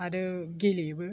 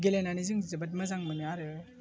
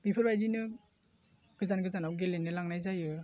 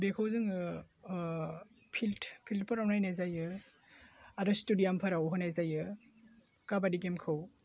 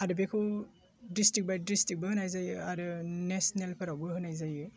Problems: constant background noise